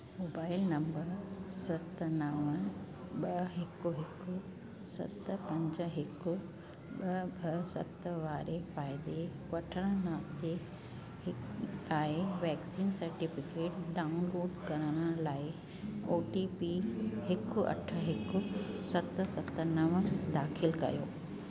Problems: constant background noise